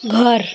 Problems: continuous background conversations